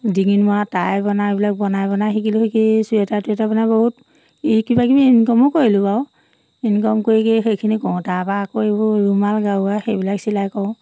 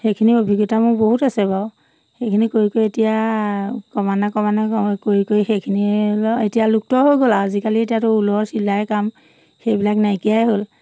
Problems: none marked